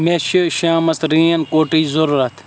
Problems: constant background noise